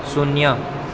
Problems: none marked